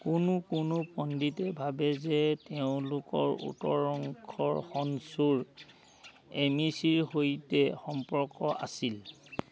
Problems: none marked